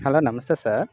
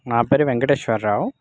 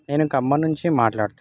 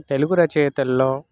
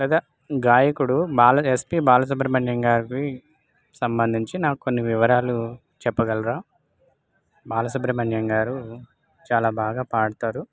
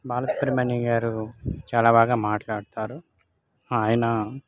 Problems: none marked